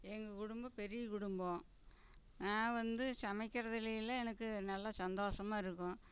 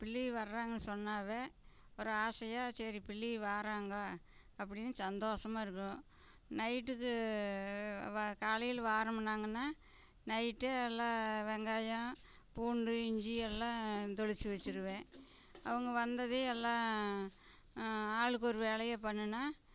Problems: none marked